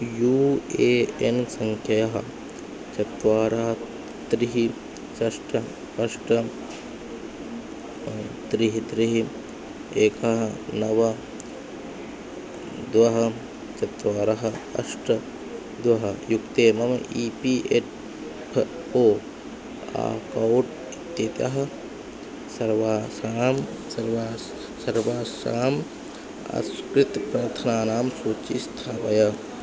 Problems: constant background noise